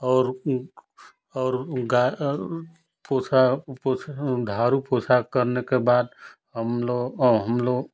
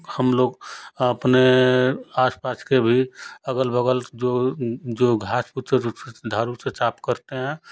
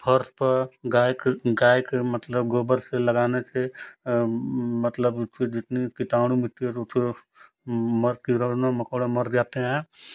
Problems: constant background noise